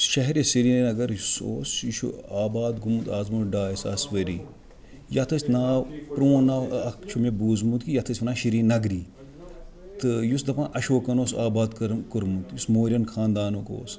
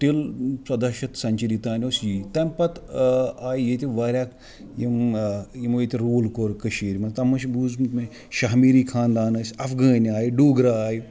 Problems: background sounds at intervals